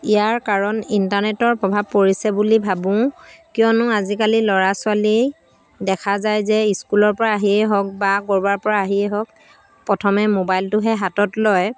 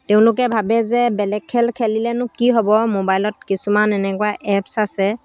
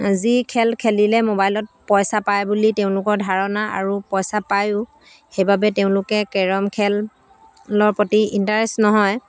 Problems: constant background noise